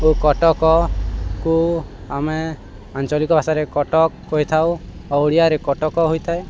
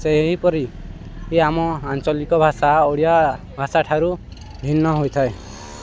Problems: constant background noise